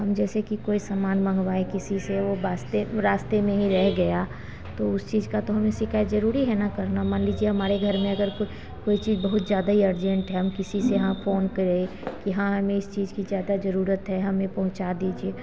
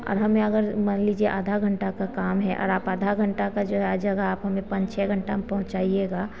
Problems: constant background noise, background conversations at intervals